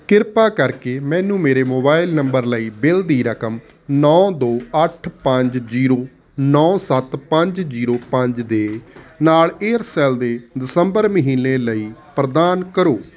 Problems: constant background noise